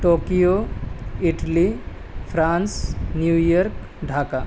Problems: constant background noise